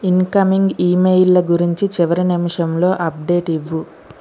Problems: constant background noise